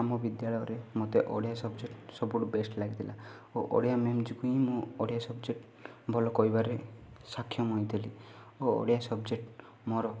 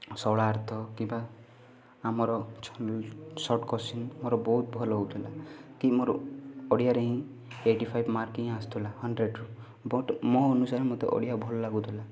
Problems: background sounds at intervals, continuous background conversations